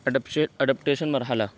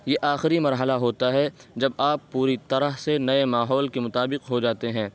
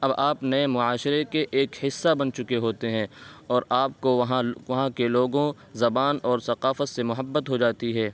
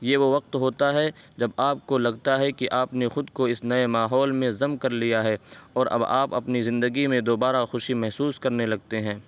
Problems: constant background noise